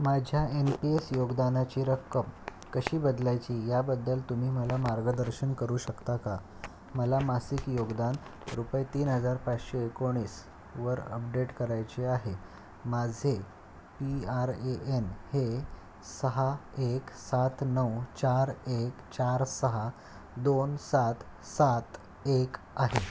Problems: none marked